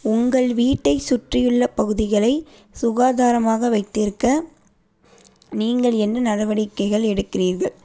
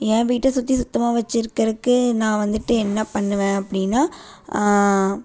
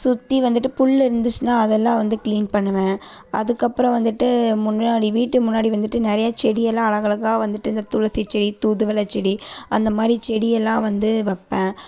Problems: none marked